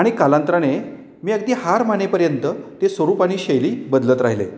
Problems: none marked